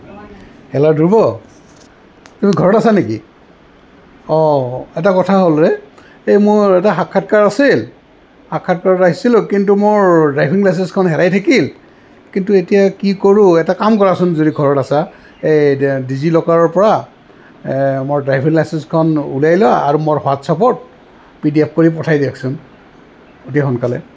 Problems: constant background noise